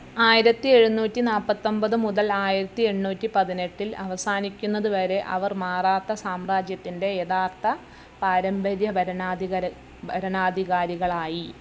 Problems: background sounds at intervals